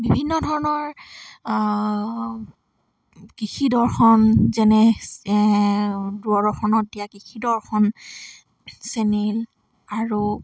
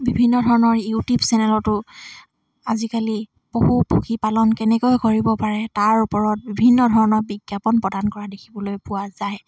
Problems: none marked